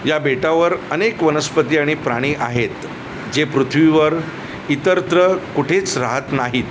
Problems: none marked